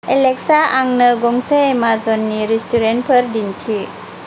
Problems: constant background noise